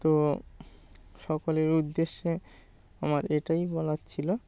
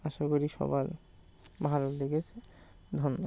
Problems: constant background noise